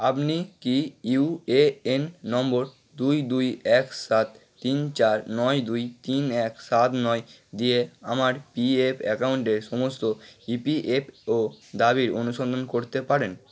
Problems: constant background noise